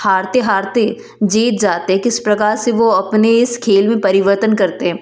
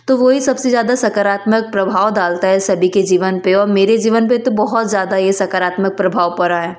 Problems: constant background noise